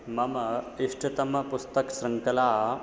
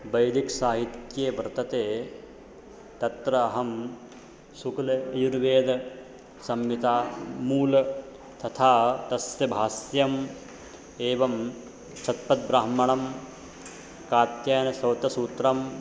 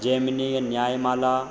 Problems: none marked